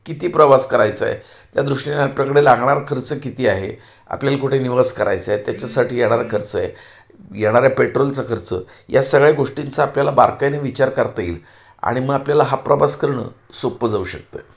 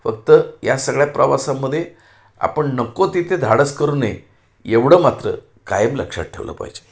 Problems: none marked